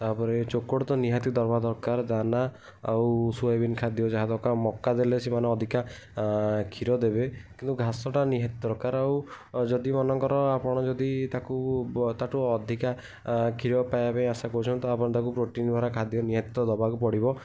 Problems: none marked